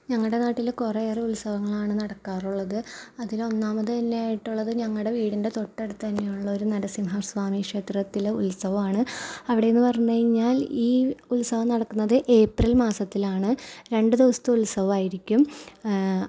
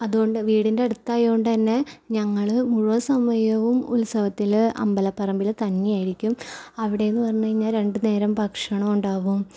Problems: none marked